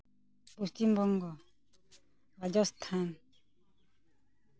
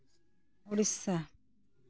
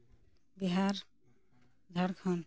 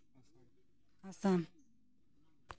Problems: none marked